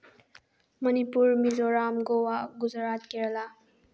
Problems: low volume